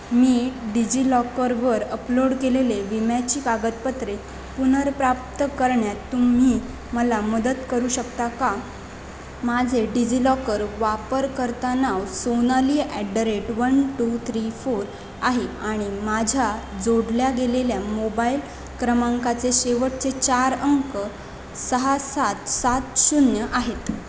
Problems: constant background noise